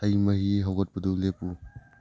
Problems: low volume